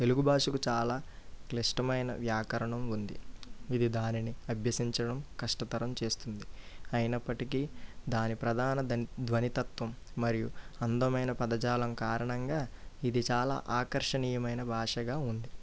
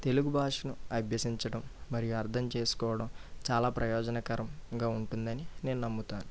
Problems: low volume